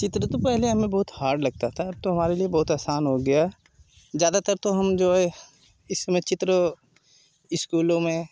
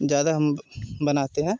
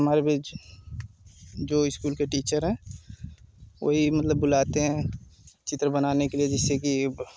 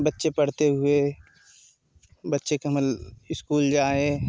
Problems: constant background noise